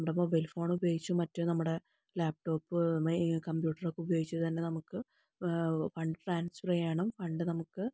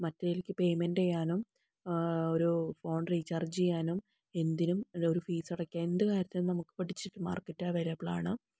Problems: low volume